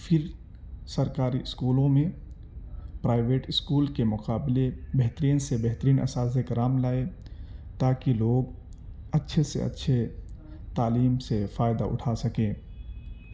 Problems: background sounds at intervals